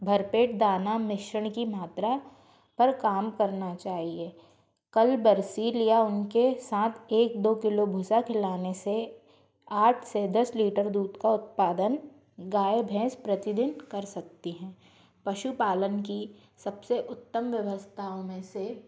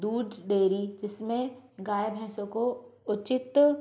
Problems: constant background noise, background conversations at intervals